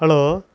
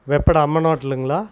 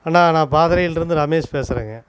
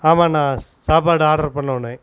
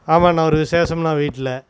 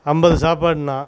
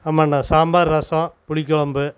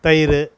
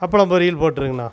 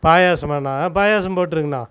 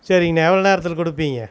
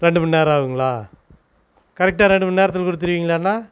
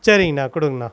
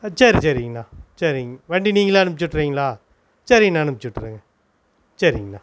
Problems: constant background noise